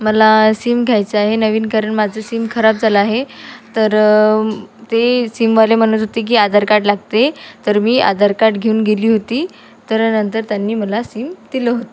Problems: constant background noise